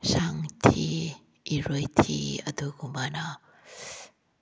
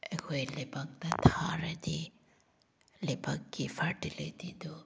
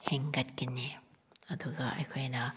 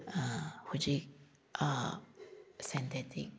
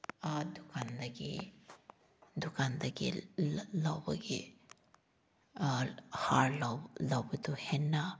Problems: background sounds at intervals